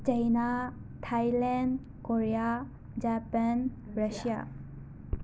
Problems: constant background noise, echo